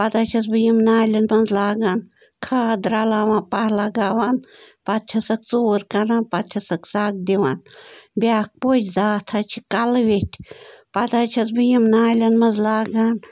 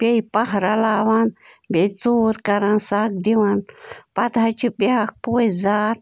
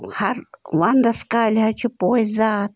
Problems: constant background noise